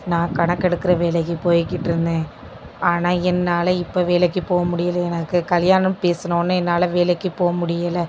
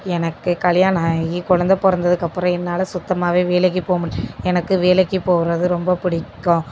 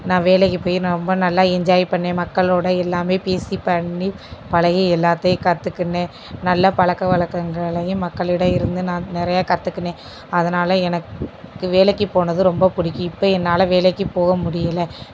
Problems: constant background noise